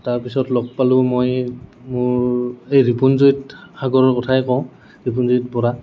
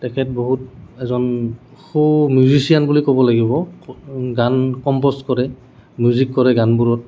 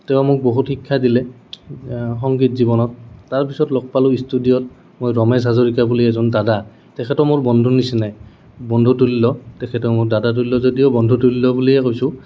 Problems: none marked